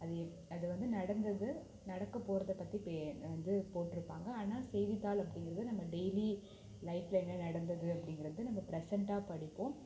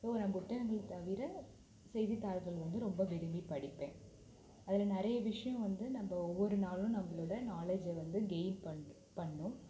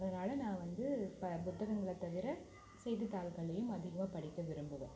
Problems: low volume